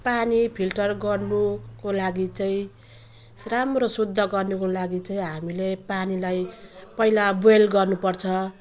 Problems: constant background noise